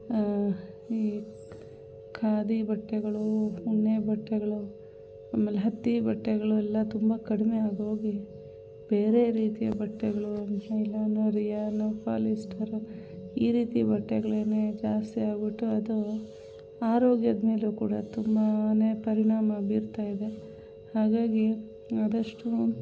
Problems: background sounds at intervals